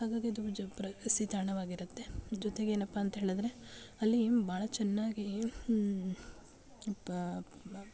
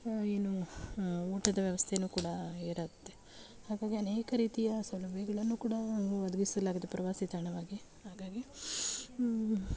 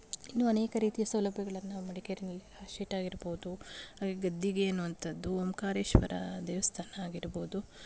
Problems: none marked